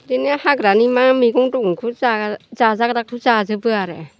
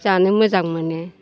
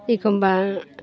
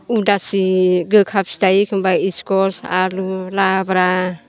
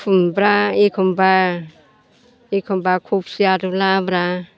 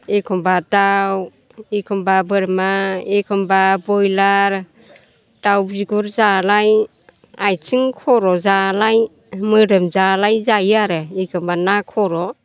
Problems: none marked